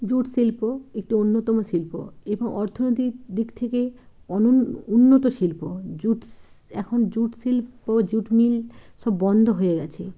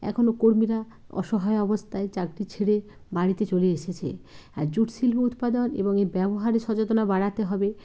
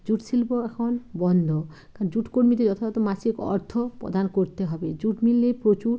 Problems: none marked